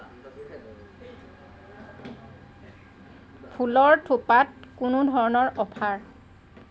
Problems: constant background noise